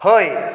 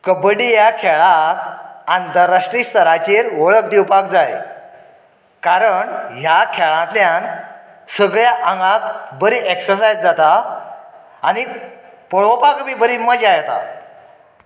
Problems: echo